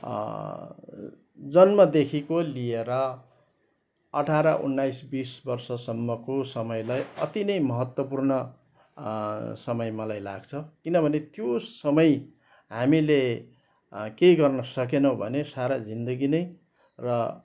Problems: background sounds at intervals